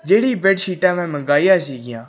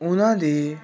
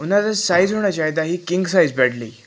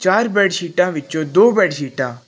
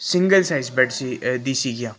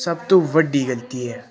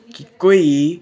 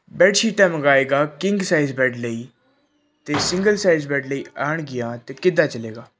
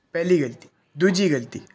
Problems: none marked